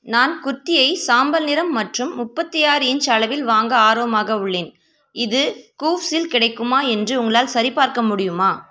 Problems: constant background noise